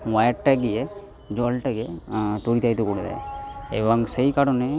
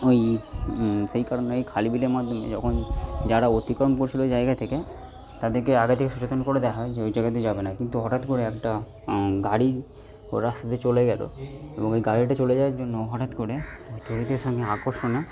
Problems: background sounds at intervals